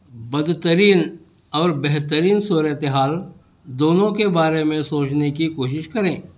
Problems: none marked